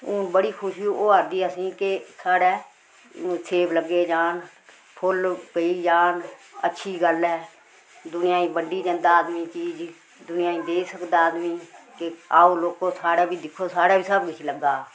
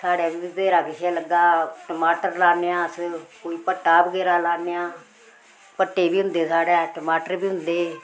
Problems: none marked